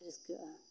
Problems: background sounds at intervals